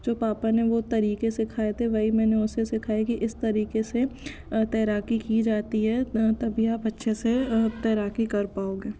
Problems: none marked